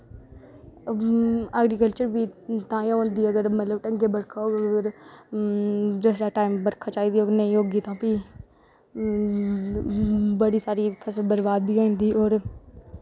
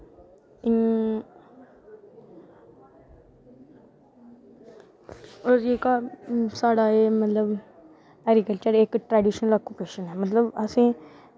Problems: background sounds at intervals